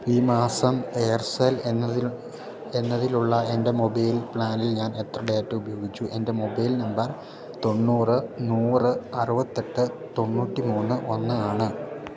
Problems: background conversations at intervals, low volume